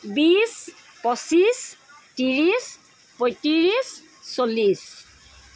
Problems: constant background noise